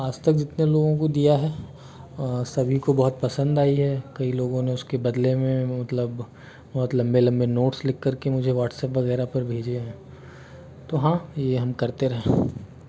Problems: constant background noise